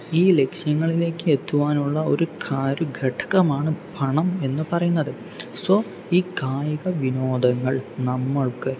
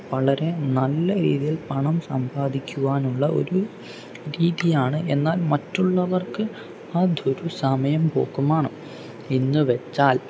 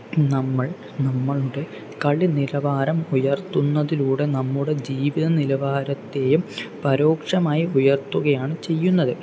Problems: none marked